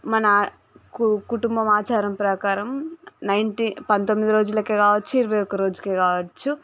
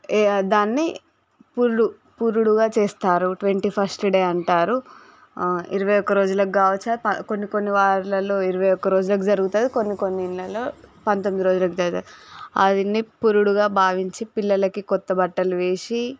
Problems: none marked